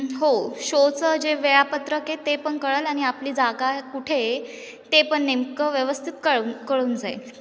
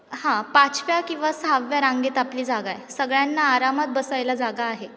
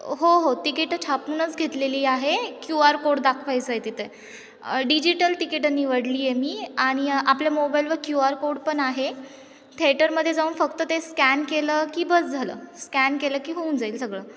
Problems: none marked